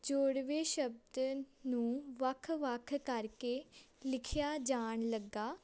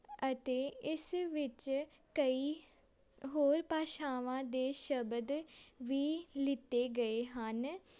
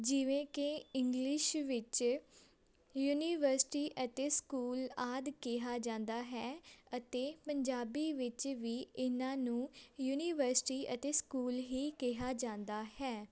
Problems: constant background noise, background conversations at intervals